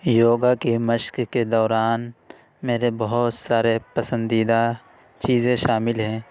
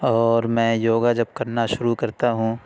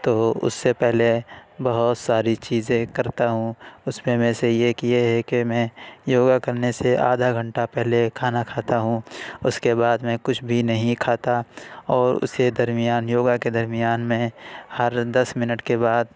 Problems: none marked